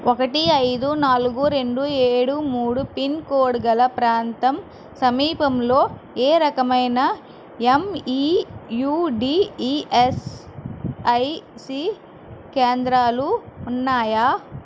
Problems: constant background noise